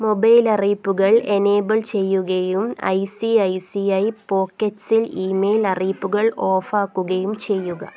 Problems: background conversations at intervals